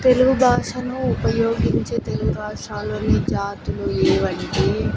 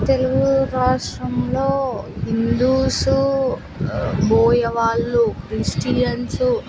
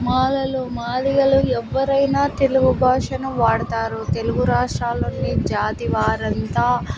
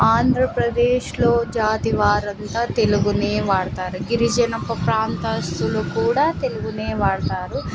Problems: constant background noise